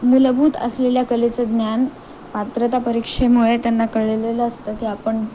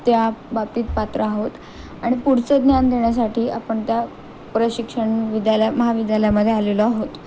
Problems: constant background noise